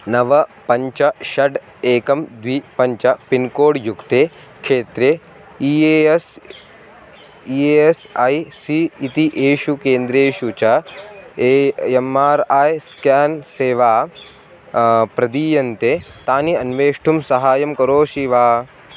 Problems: constant background noise